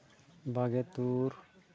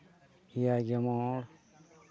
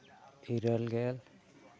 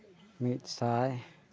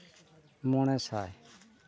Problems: constant background noise